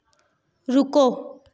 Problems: echo